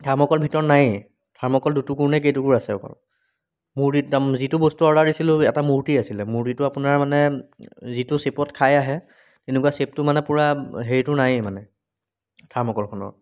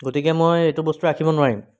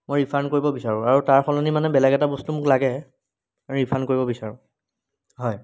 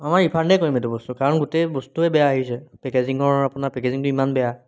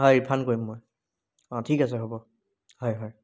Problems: none marked